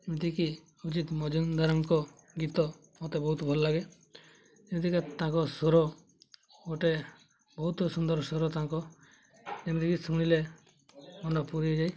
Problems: background sounds at intervals, background conversations at intervals